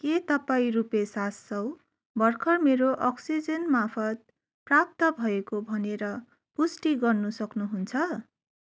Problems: none marked